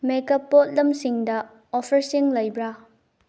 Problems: low volume